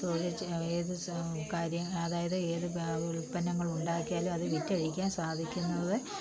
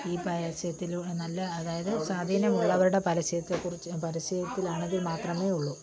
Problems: low volume